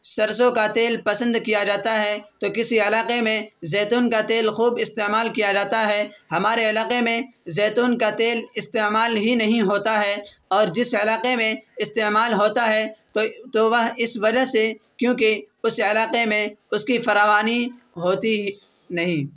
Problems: constant background noise